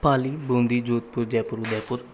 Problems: background sounds at intervals